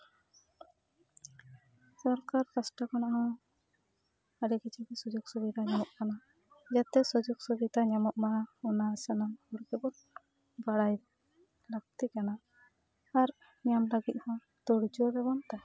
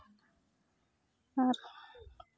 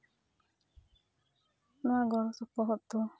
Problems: background sounds at intervals, background conversations at intervals